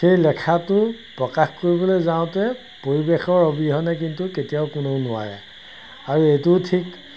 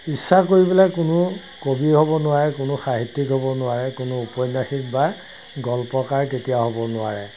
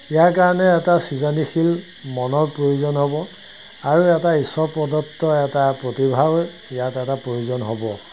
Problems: constant background noise